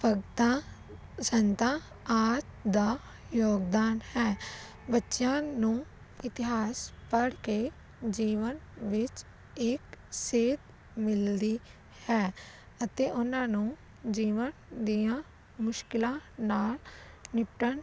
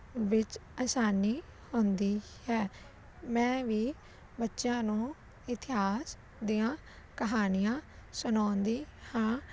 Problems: constant background noise